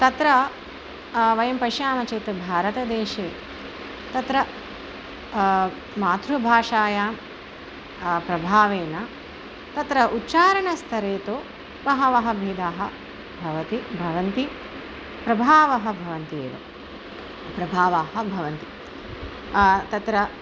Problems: constant background noise